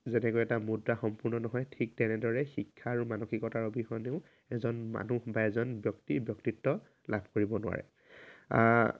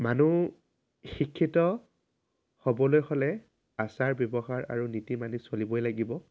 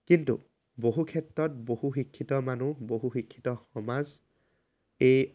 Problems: constant background noise